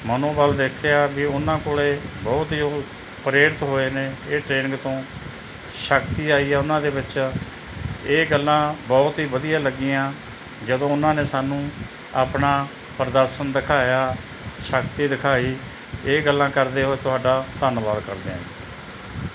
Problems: background sounds at intervals